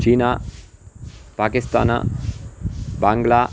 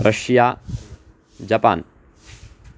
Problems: background sounds at intervals